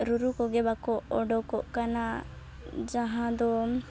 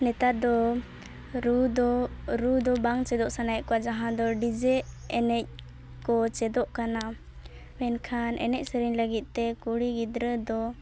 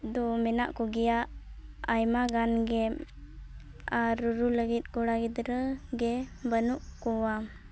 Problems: none marked